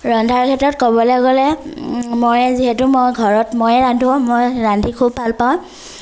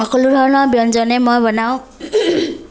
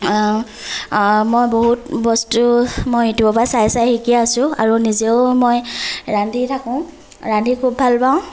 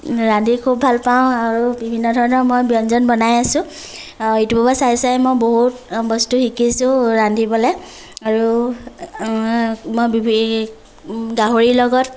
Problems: none marked